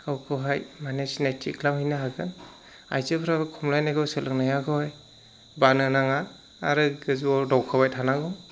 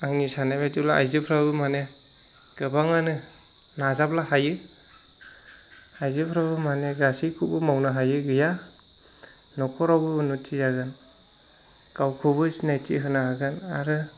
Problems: none marked